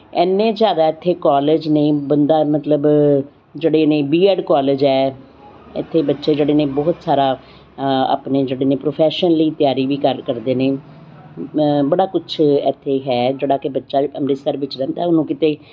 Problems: constant background noise